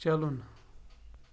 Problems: none marked